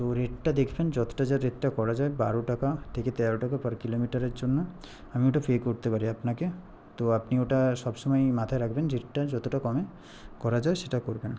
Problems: background conversations at intervals